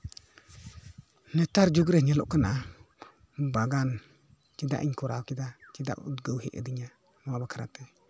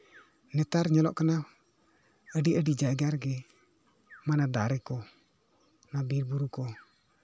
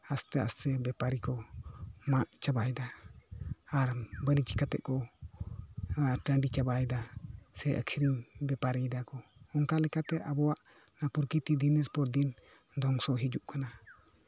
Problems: background sounds at intervals, background conversations at intervals